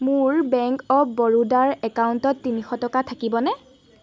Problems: none marked